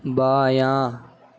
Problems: constant background noise